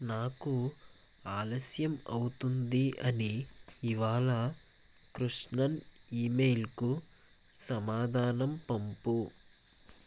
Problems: constant background noise